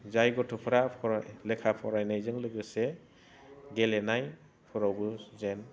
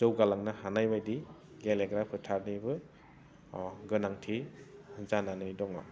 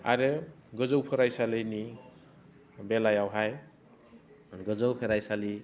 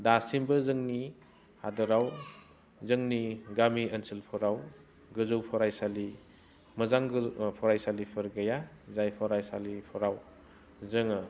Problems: none marked